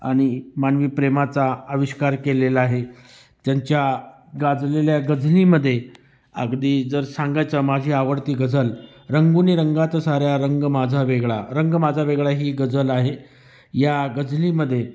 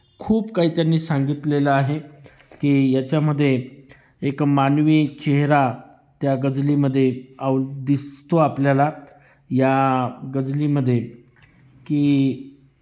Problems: constant background noise, background conversations at intervals